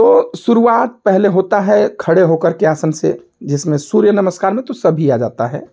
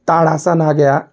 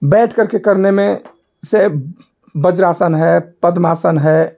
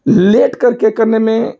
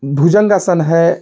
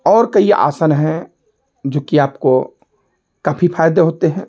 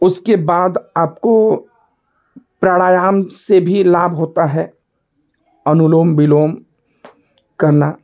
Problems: none marked